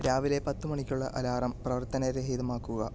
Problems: low volume